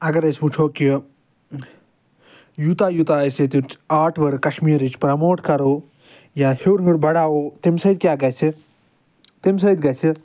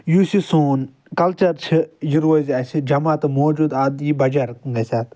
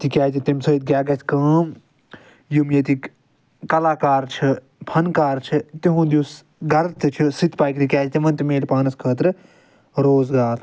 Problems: none marked